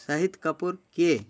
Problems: none marked